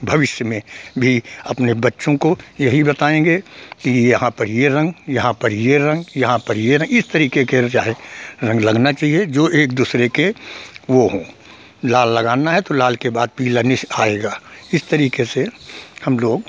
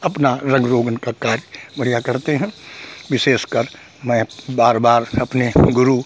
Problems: none marked